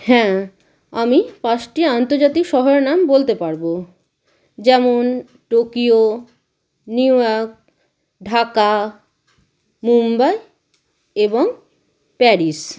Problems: constant background noise